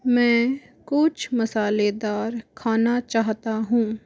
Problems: constant background noise, background conversations at intervals